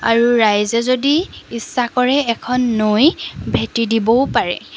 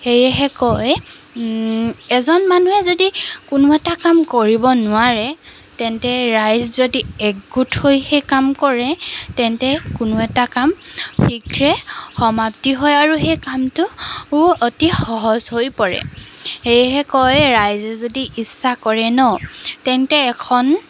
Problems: background sounds at intervals